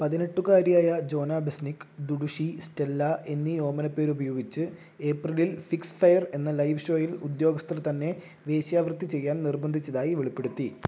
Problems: low volume